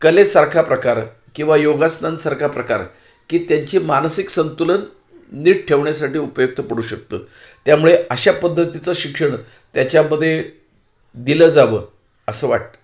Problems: background sounds at intervals, echo